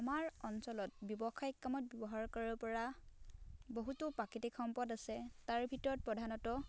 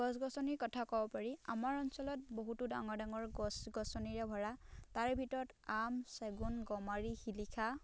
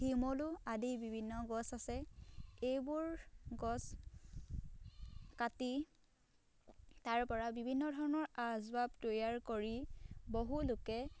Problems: none marked